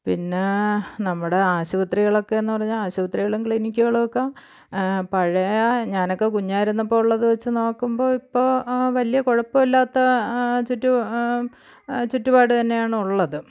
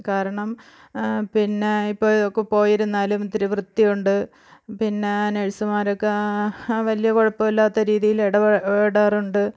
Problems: none marked